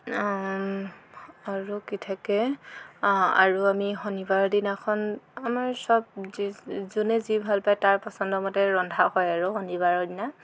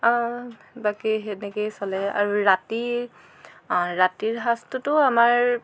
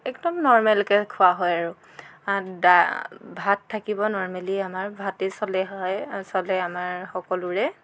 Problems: constant background noise, background conversations at intervals